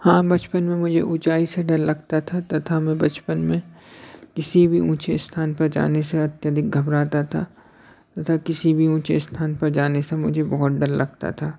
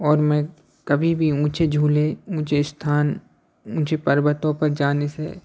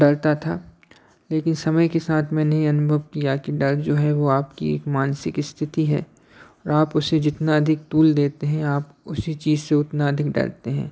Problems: background sounds at intervals, background conversations at intervals